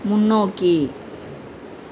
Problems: constant background noise